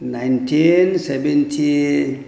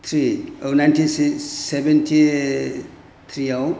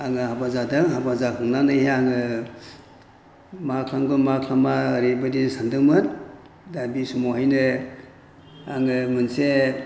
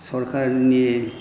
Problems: none marked